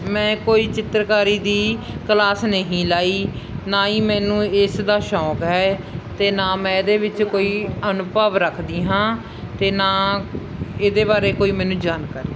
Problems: background sounds at intervals